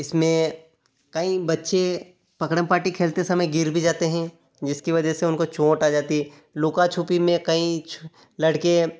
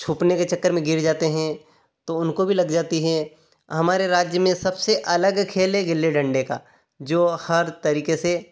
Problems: none marked